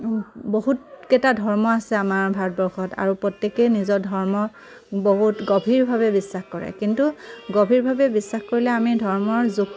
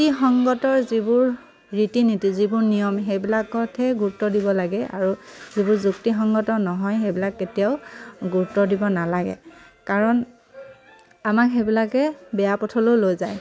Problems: constant background noise